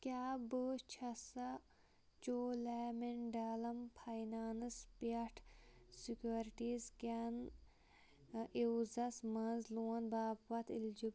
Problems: low volume